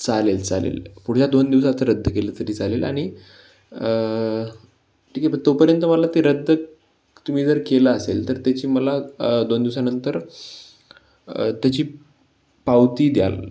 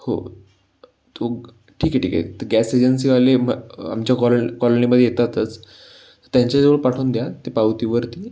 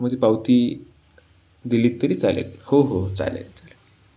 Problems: background sounds at intervals